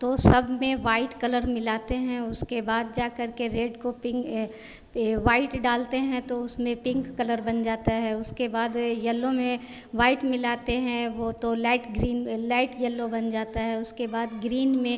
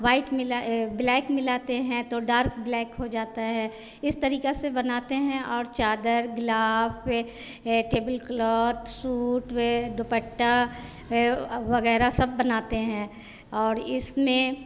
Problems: none marked